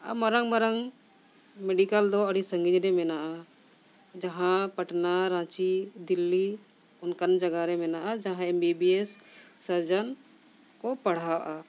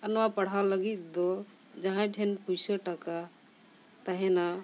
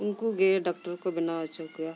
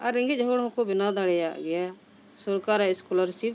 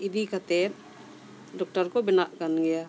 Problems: none marked